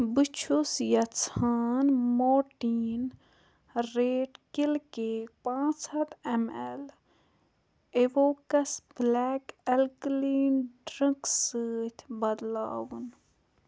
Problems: low volume